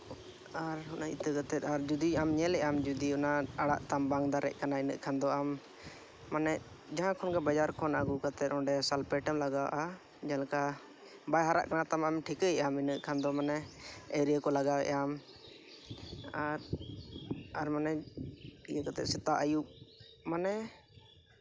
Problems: background sounds at intervals, background conversations at intervals